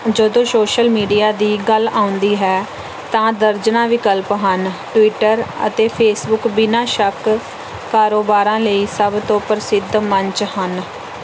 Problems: background sounds at intervals